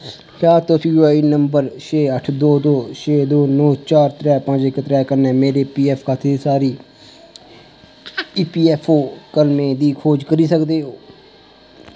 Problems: constant background noise